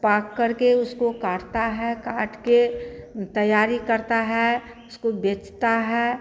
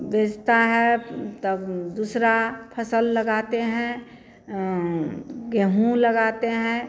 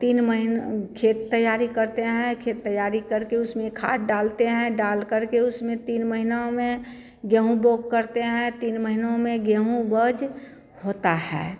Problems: none marked